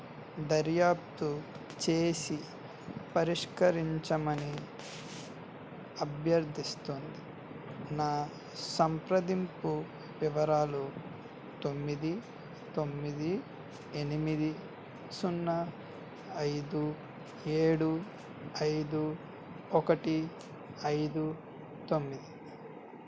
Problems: constant background noise